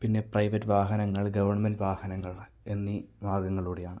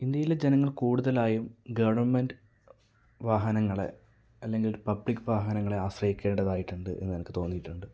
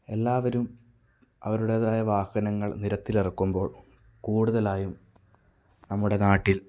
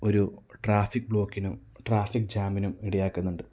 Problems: none marked